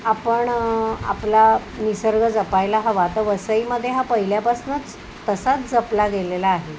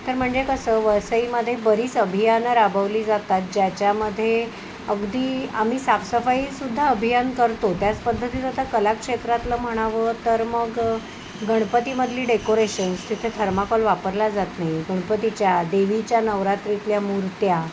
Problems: none marked